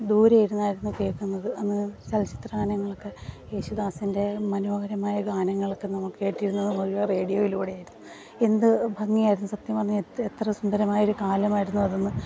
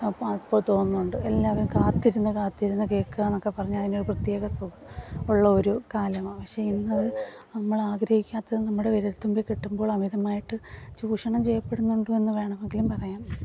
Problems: background sounds at intervals